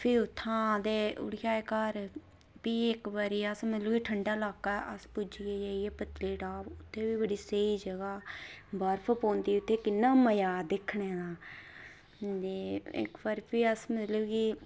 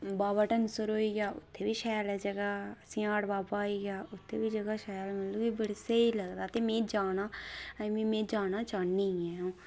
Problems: none marked